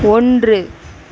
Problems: background sounds at intervals